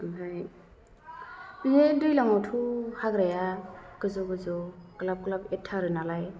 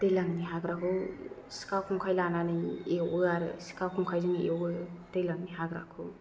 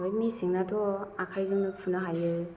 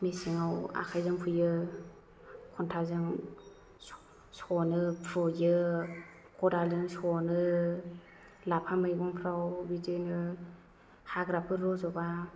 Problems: low volume